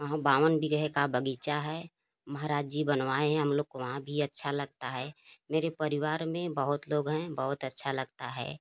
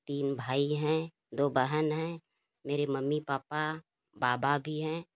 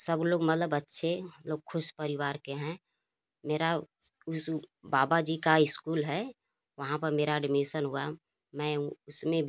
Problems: constant background noise